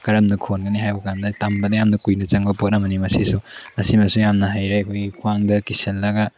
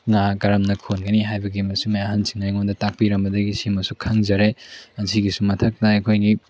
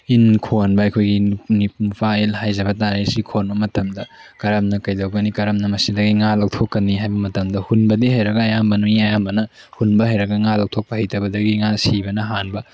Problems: background sounds at intervals